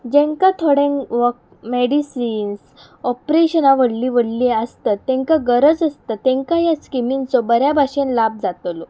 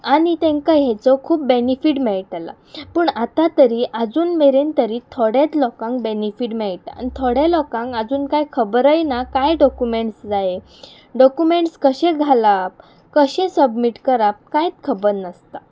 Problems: background sounds at intervals